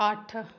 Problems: none marked